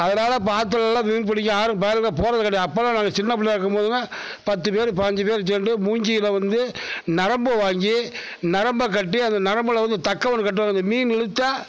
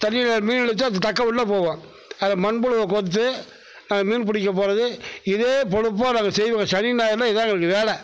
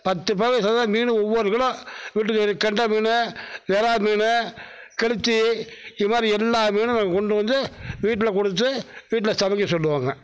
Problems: none marked